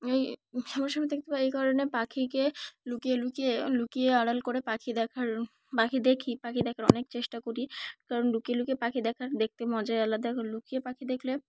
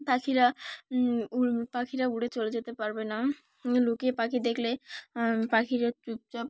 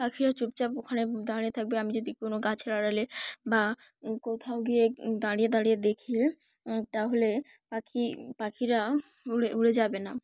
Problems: none marked